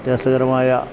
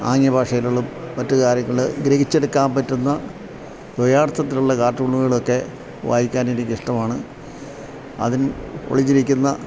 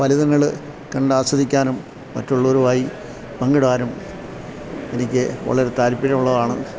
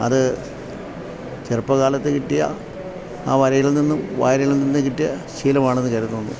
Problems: low volume